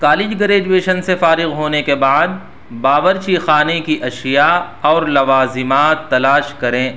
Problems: background sounds at intervals